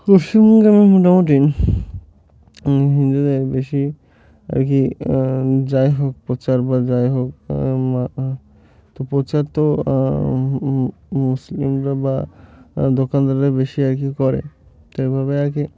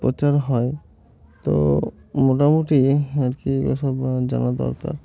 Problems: constant background noise, continuous background conversations